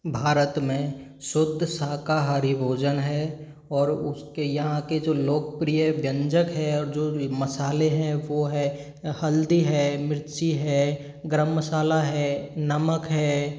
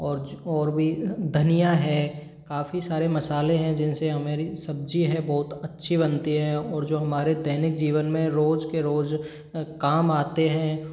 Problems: none marked